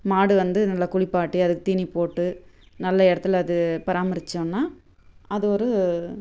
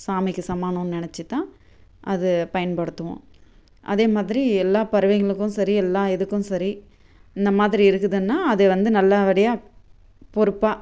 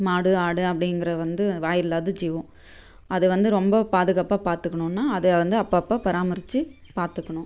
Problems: none marked